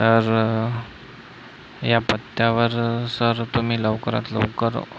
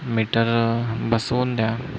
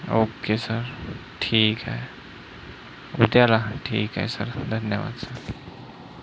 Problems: constant background noise